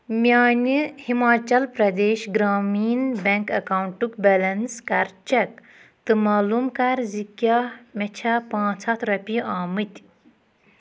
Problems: background sounds at intervals